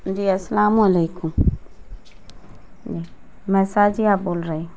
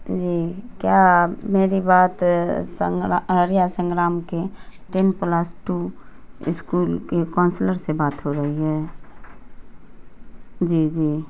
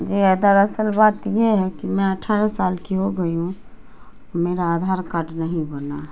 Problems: constant background noise